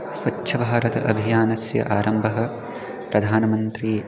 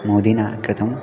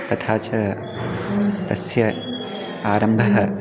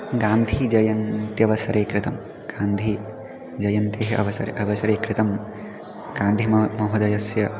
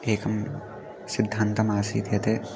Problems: background sounds at intervals